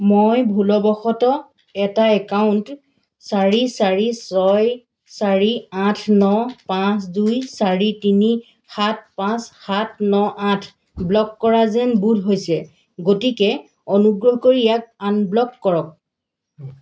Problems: none marked